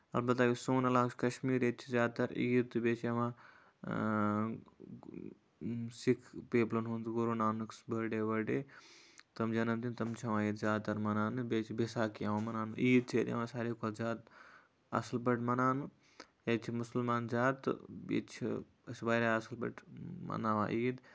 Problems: none marked